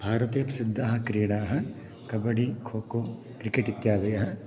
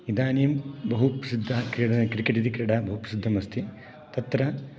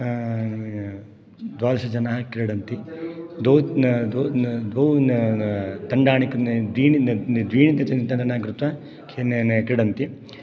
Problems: background sounds at intervals